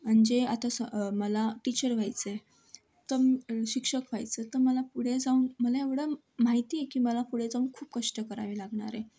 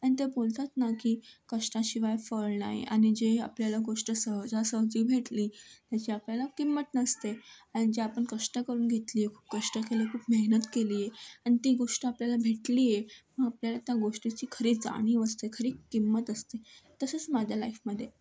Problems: none marked